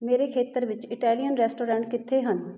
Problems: none marked